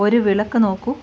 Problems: constant background noise